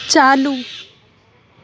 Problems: none marked